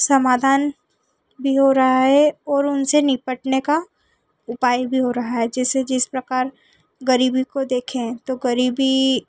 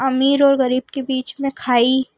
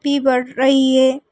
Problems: constant background noise